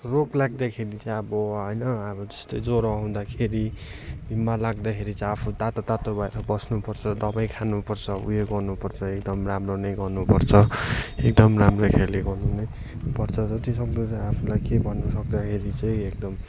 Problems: constant background noise, continuous background conversations